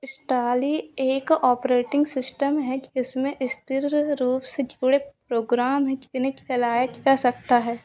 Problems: none marked